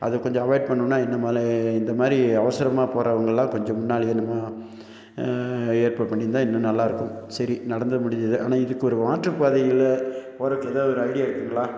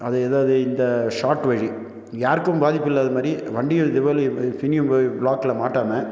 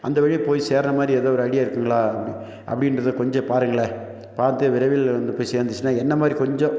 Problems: none marked